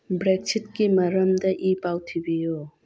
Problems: background sounds at intervals